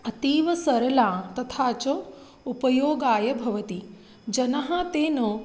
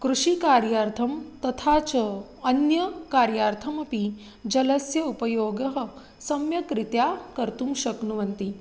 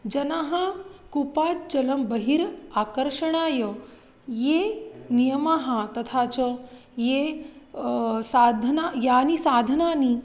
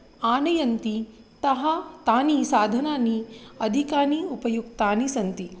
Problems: constant background noise